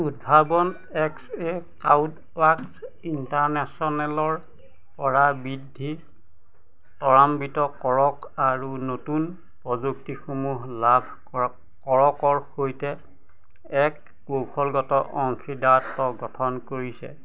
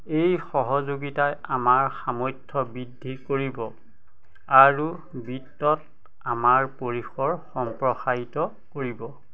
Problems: constant background noise, background conversations at intervals